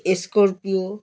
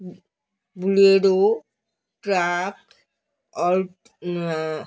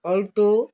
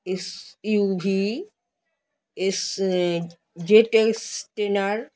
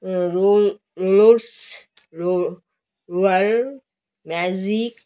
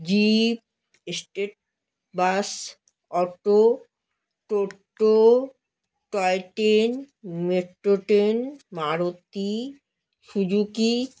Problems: none marked